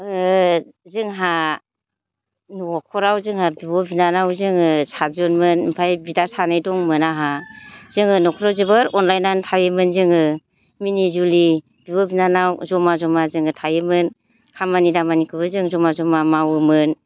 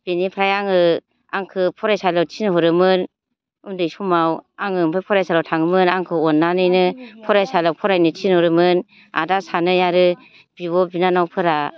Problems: none marked